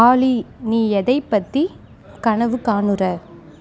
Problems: continuous background conversations